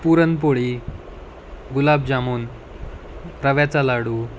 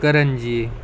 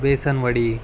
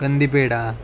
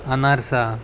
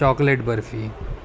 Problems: none marked